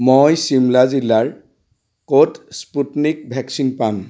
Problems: constant background noise